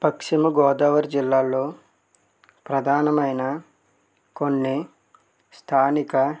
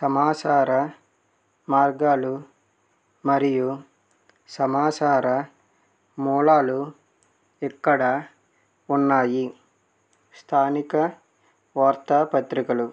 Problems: none marked